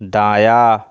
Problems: none marked